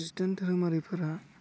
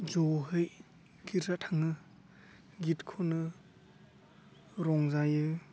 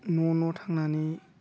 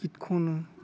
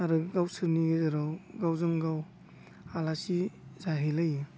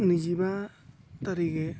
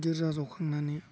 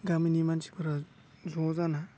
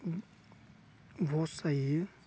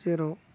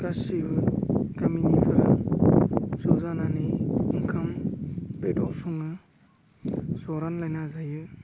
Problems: background sounds at intervals